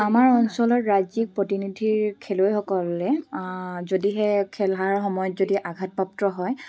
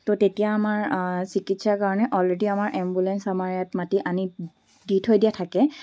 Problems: background sounds at intervals